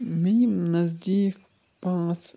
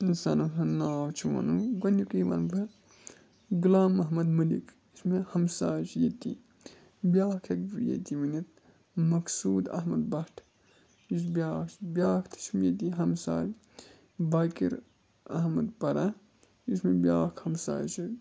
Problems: constant background noise, low volume